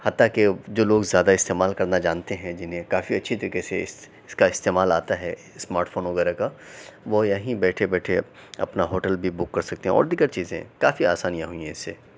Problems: none marked